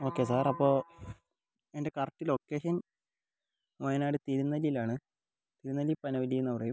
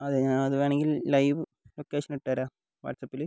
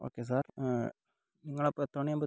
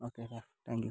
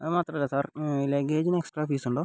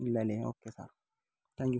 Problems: low volume